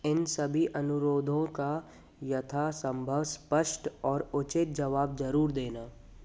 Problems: constant background noise